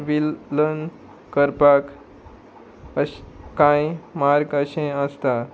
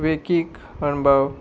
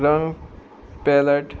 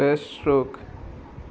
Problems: constant background noise